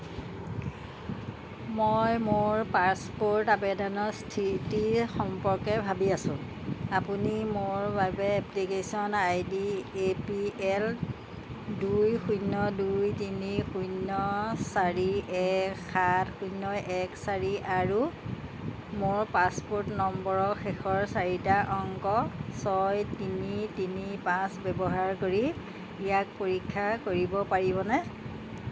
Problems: background sounds at intervals